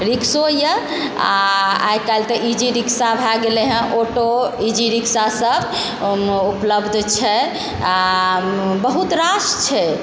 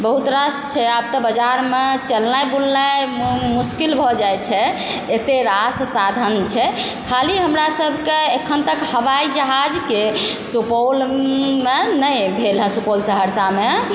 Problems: constant background noise, background conversations at intervals